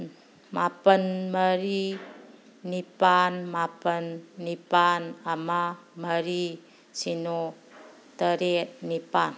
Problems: background sounds at intervals